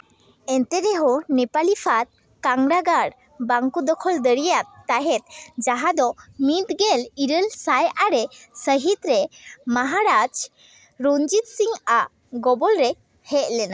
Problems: none marked